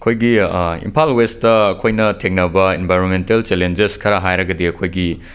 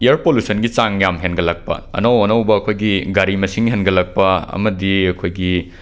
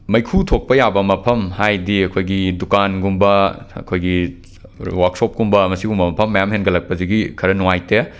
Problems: none marked